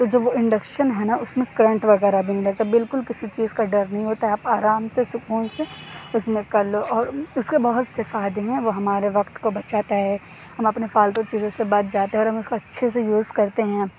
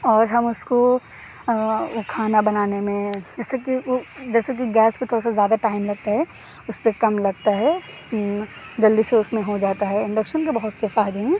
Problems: none marked